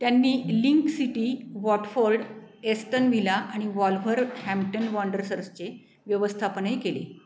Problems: constant background noise, background conversations at intervals